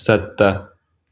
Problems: constant background noise